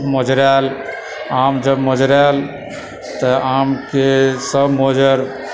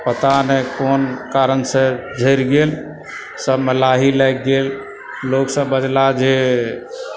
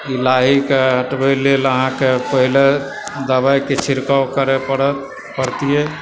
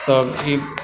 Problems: background sounds at intervals, continuous background conversations